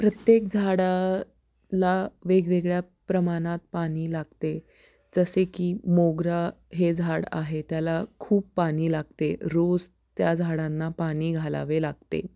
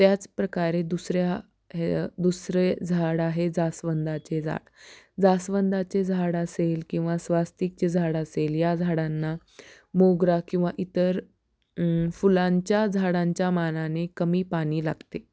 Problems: none marked